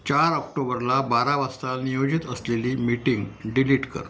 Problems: none marked